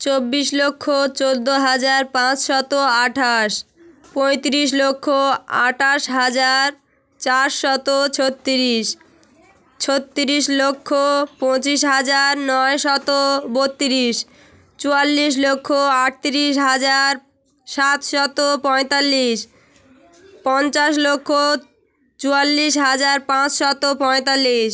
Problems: constant background noise, background conversations at intervals